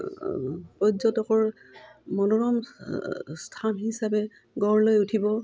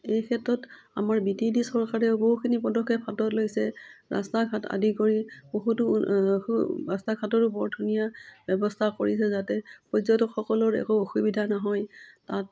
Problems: none marked